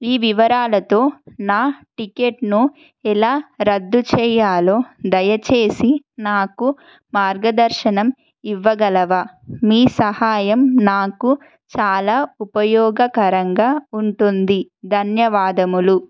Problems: constant background noise